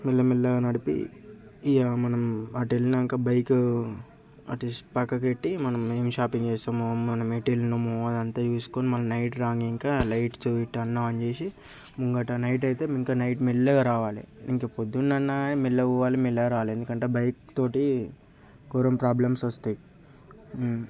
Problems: constant background noise, background conversations at intervals